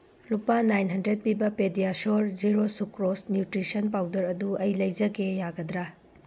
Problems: background sounds at intervals